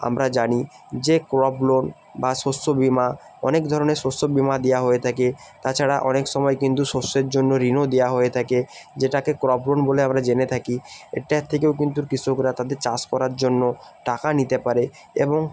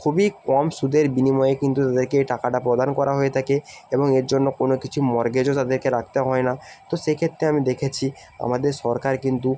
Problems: none marked